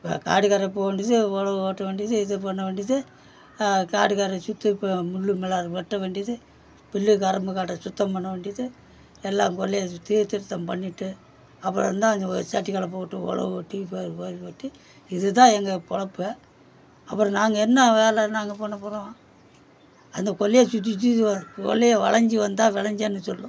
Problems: background sounds at intervals